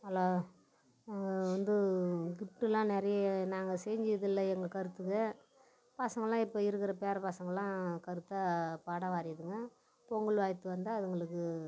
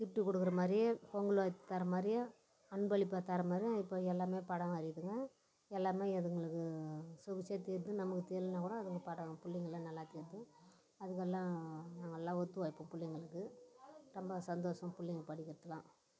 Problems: none marked